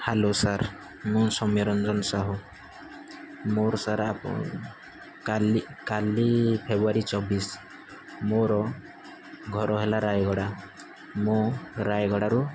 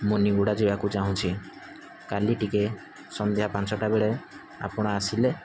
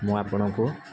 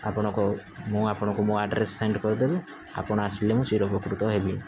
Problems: constant background noise